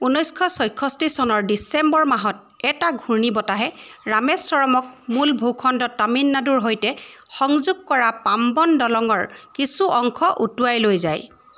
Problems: constant background noise